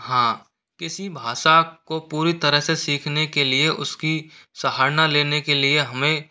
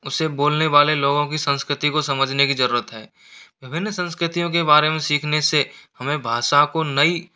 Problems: none marked